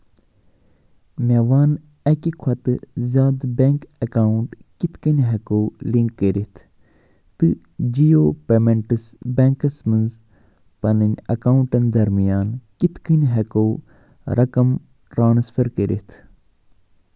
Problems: none marked